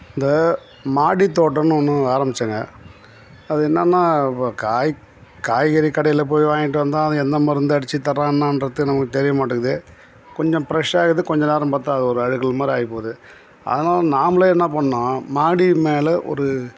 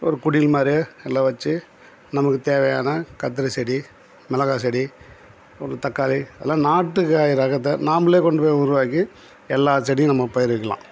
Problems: background sounds at intervals